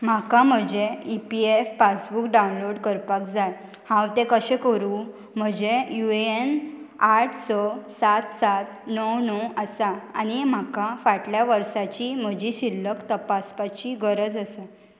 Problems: constant background noise